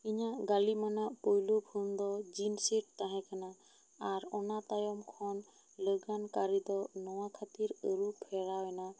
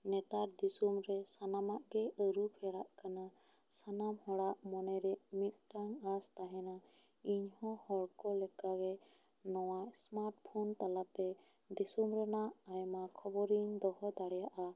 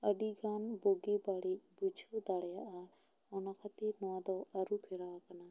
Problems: low volume